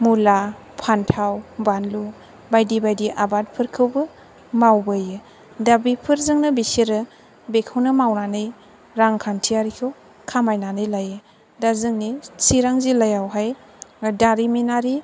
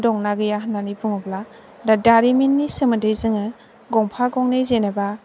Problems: background sounds at intervals